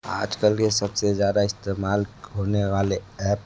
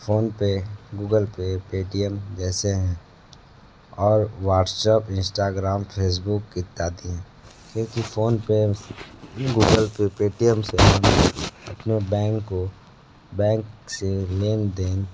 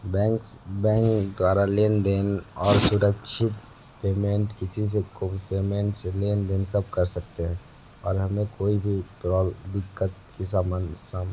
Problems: constant background noise, low volume